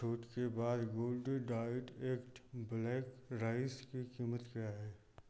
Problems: none marked